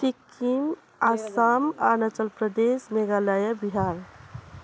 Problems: none marked